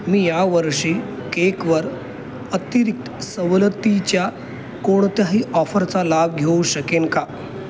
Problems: constant background noise